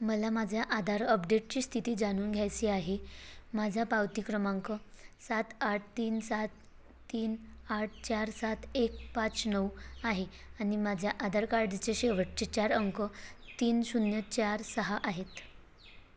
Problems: constant background noise